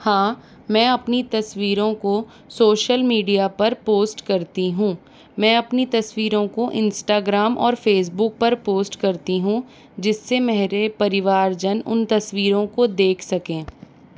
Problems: none marked